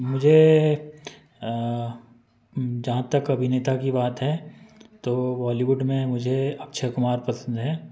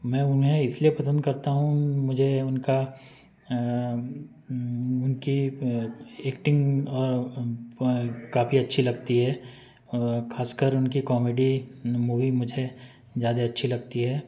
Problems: background conversations at intervals